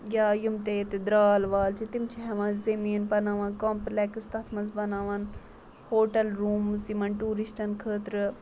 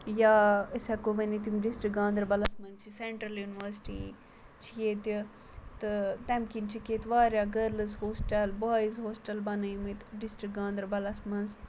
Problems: constant background noise